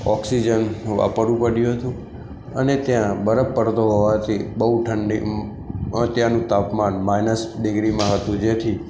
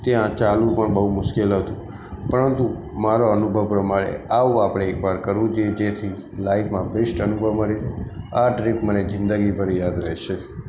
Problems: constant background noise